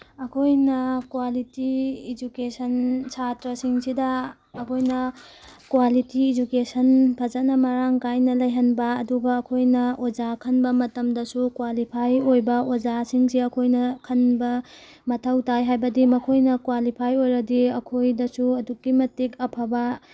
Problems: background sounds at intervals